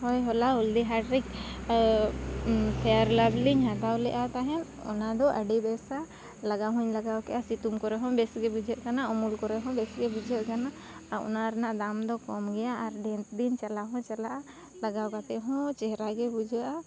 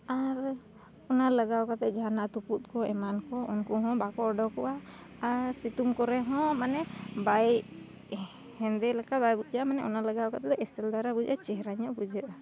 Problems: none marked